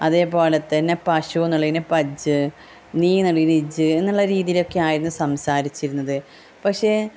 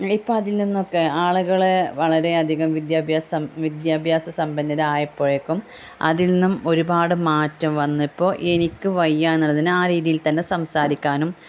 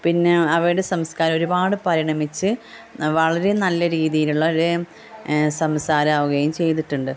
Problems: constant background noise, background conversations at intervals, low volume